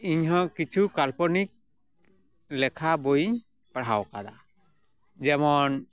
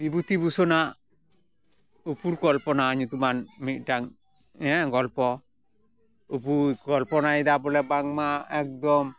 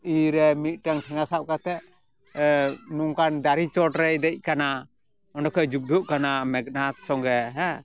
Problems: background sounds at intervals, background conversations at intervals